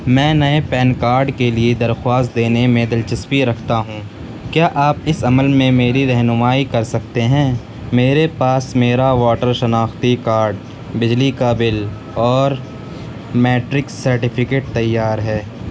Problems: constant background noise